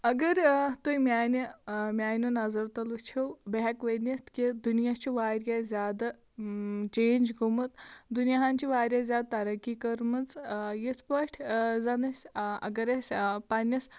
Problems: constant background noise